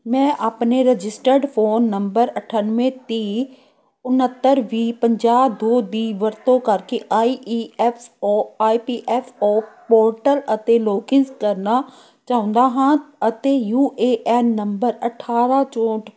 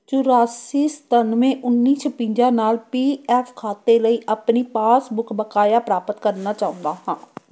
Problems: background conversations at intervals